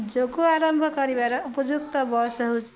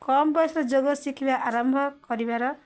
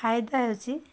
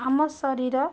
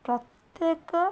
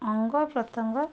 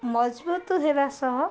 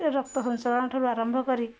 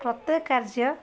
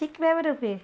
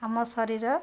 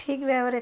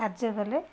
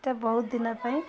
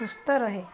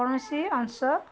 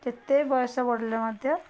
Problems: constant background noise, continuous background conversations